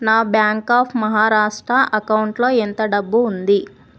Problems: none marked